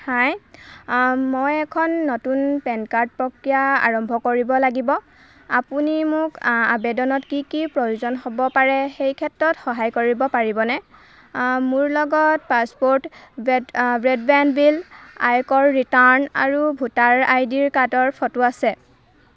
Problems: constant background noise, background conversations at intervals